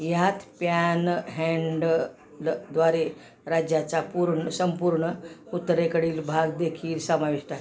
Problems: background sounds at intervals, background conversations at intervals